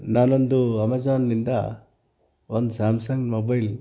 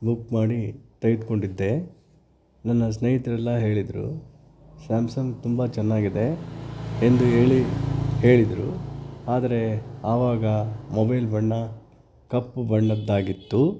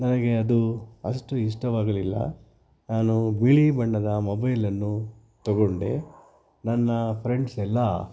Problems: background sounds at intervals